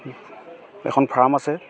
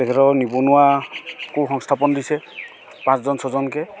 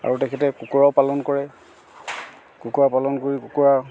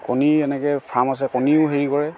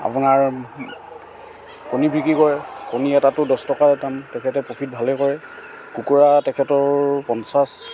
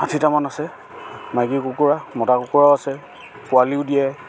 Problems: constant background noise, background conversations at intervals